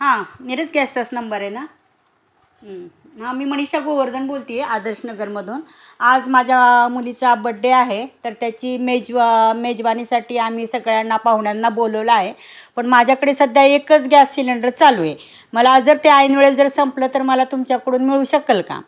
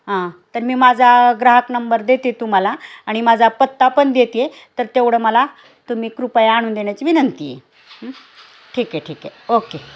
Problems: none marked